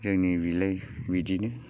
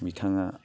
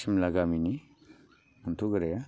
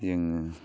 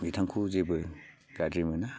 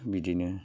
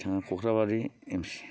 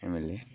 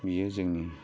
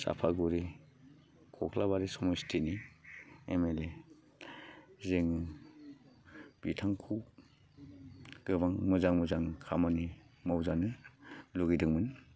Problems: low volume